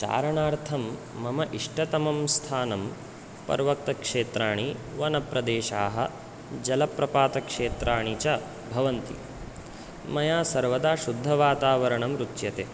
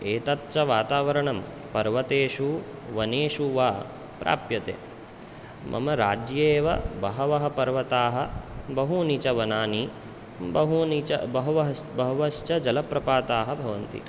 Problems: none marked